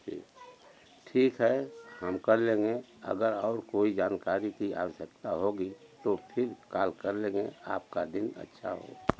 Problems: none marked